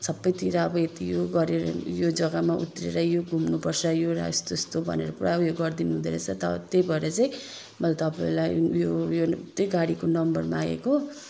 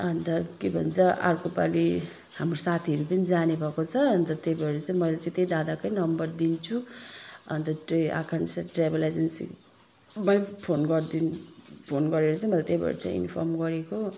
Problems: background sounds at intervals